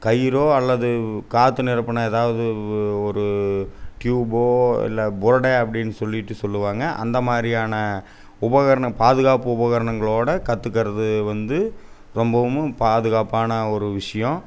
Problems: none marked